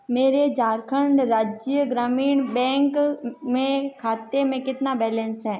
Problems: none marked